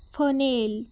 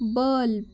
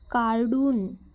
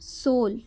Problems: background sounds at intervals